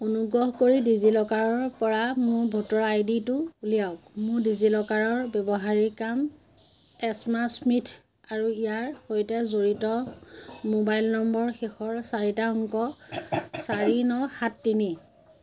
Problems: constant background noise